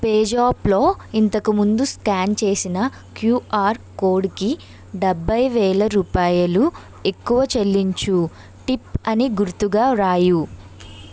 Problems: constant background noise